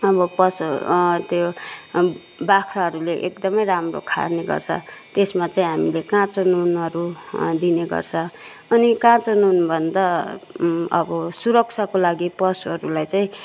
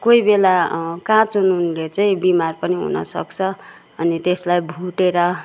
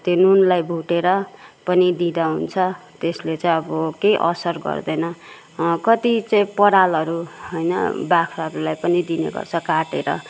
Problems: constant background noise